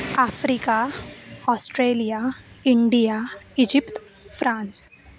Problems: constant background noise